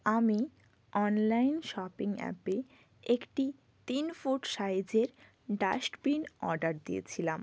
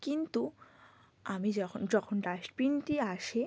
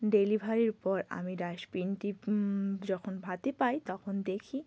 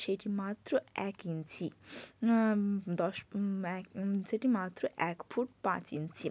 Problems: none marked